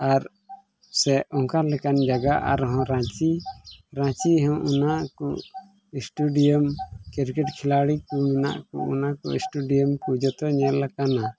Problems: background sounds at intervals